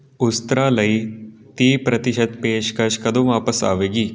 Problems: continuous background conversations